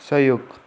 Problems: none marked